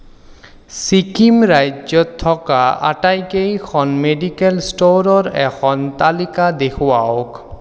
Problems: echo